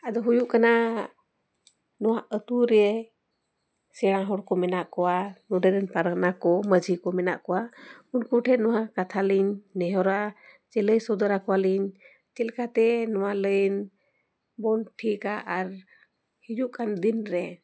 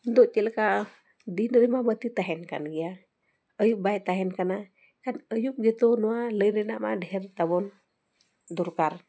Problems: background sounds at intervals